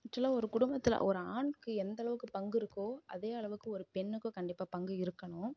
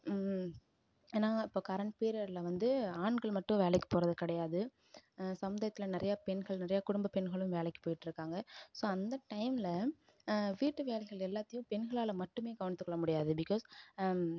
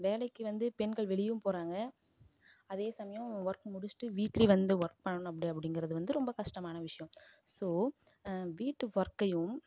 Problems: low volume